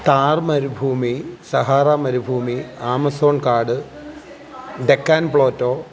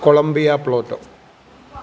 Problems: background sounds at intervals